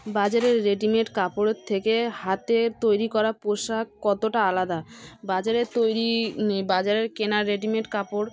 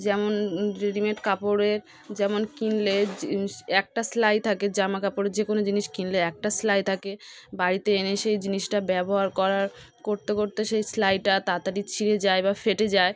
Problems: background sounds at intervals, background conversations at intervals